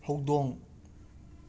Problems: constant background noise